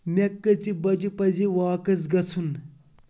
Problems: constant background noise